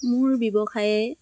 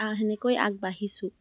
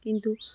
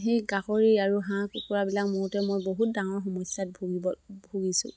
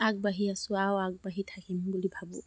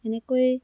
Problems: none marked